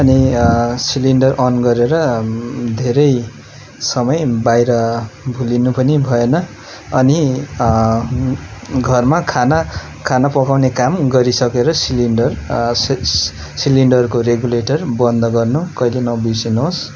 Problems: constant background noise